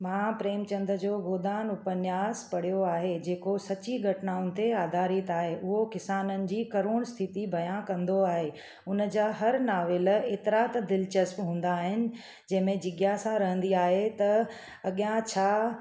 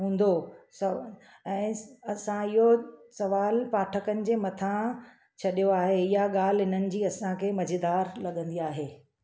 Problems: none marked